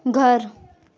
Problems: constant background noise, continuous background conversations